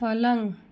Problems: none marked